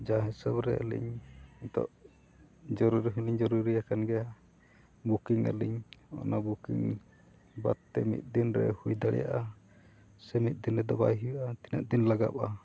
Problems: none marked